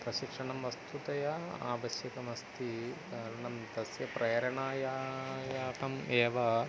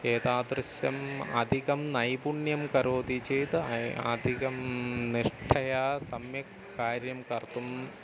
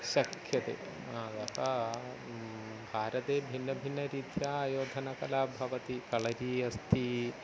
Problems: constant background noise